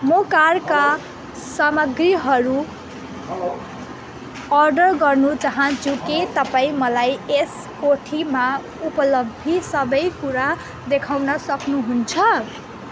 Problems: echo